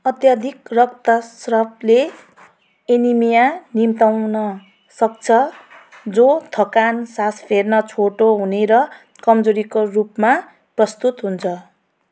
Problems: none marked